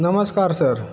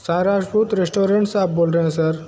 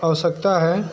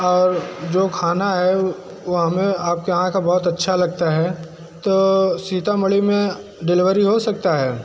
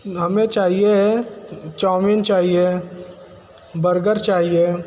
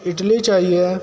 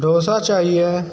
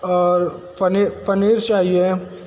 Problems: constant background noise